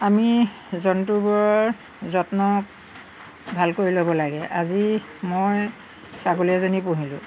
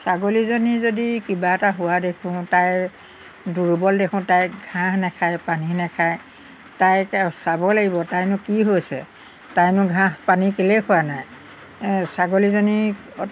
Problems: background sounds at intervals